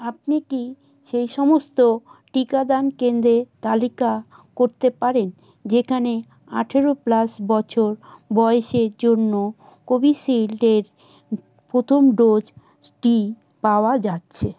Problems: none marked